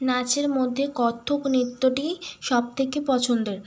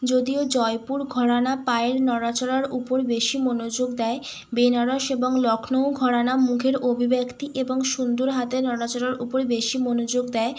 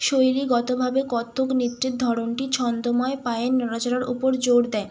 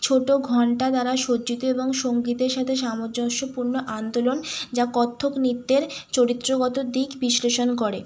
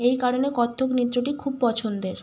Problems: none marked